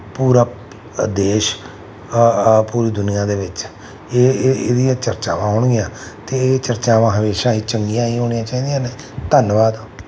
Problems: none marked